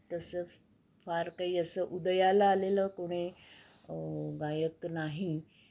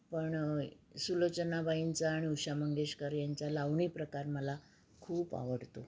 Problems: background sounds at intervals